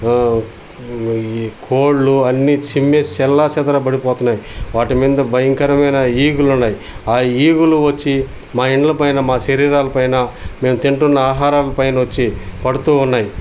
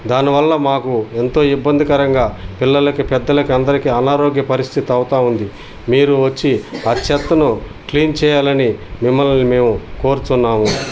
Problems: background sounds at intervals